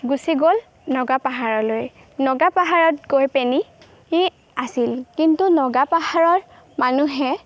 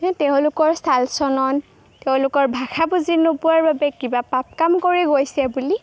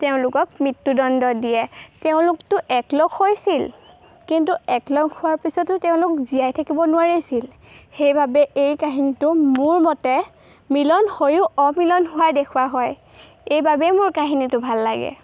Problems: background sounds at intervals